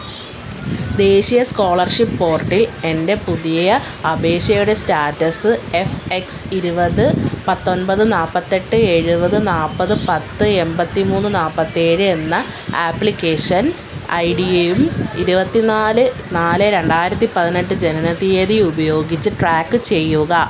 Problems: constant background noise, low volume